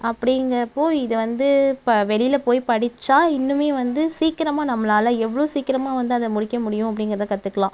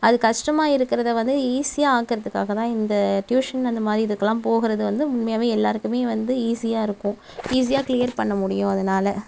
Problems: none marked